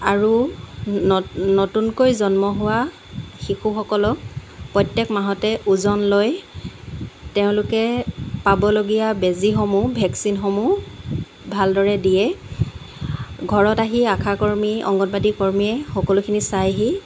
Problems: constant background noise